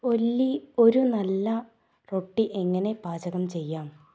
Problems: none marked